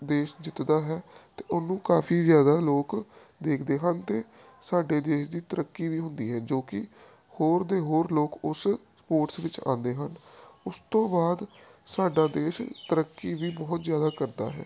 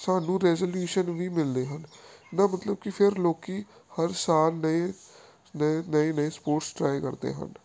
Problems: none marked